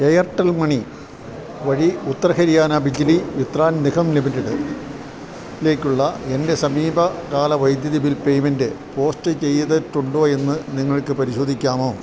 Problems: low volume